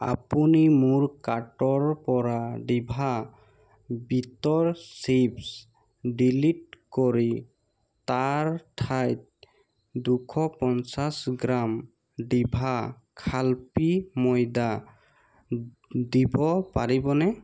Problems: constant background noise